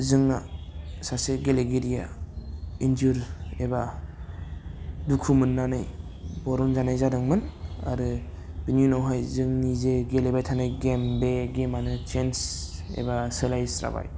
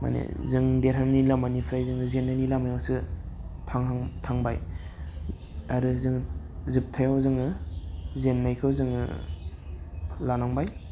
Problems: constant background noise